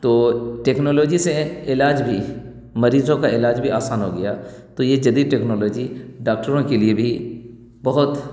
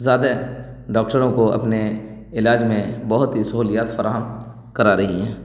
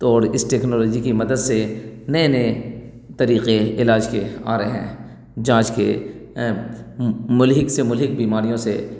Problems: none marked